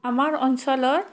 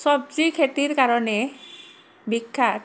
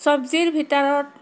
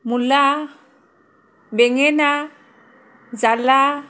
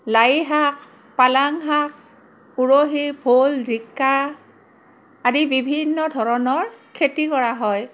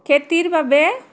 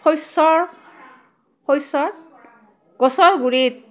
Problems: background conversations at intervals